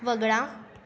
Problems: constant background noise, background conversations at intervals